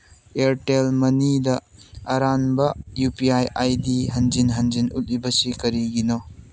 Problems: none marked